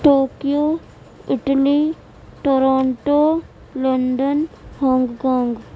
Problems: none marked